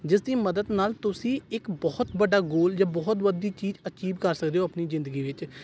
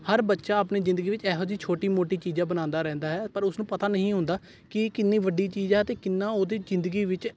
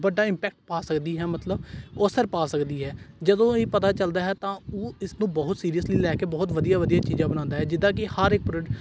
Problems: none marked